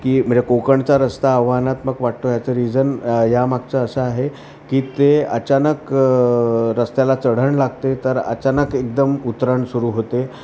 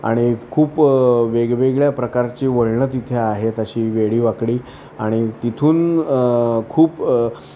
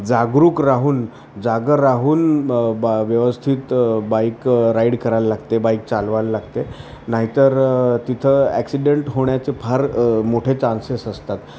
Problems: constant background noise, continuous background conversations